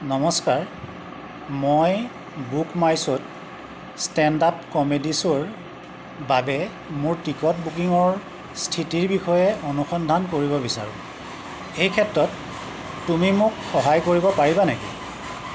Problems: none marked